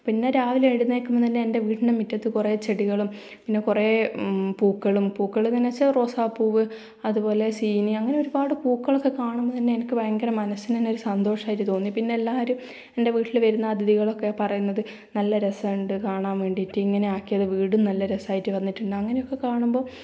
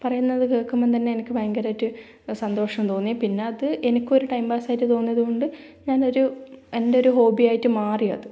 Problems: low volume